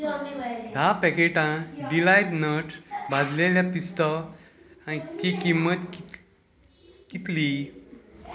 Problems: background conversations at intervals